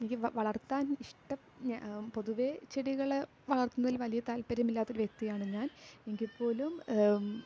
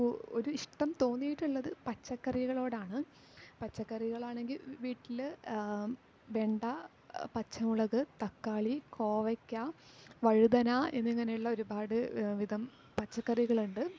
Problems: low volume